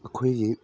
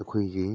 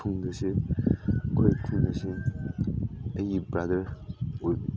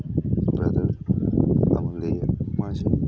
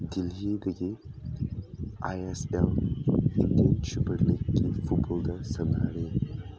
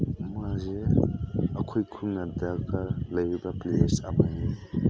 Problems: constant background noise